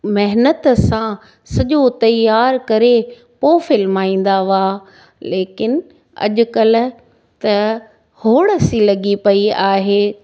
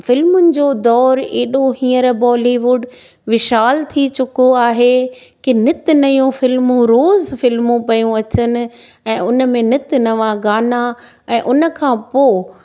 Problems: none marked